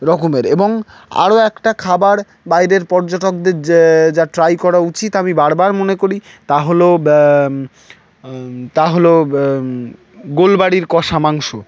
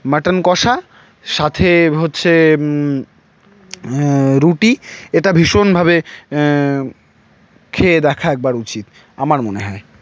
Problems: none marked